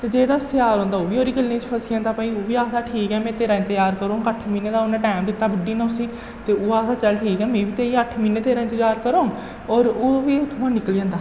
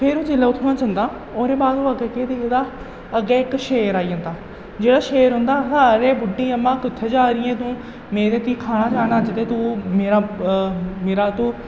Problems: echo, low volume